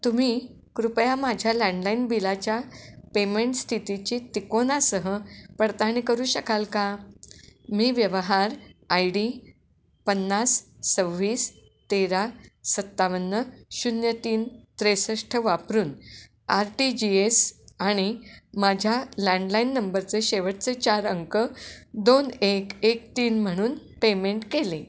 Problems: constant background noise, echo